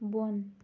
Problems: none marked